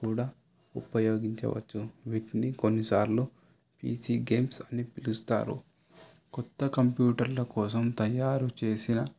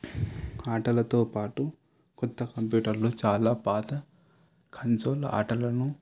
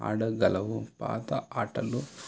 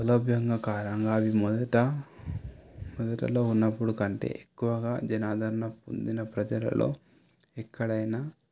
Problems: background sounds at intervals